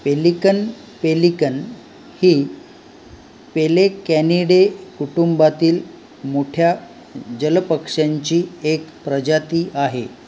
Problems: constant background noise